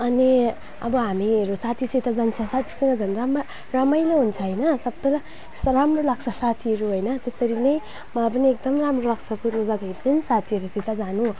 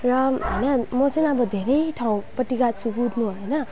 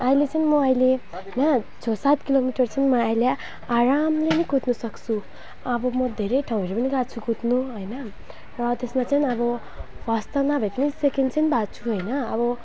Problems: background sounds at intervals